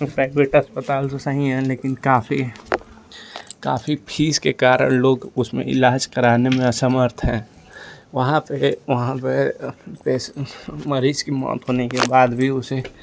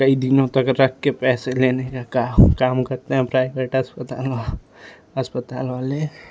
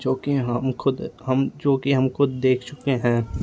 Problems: constant background noise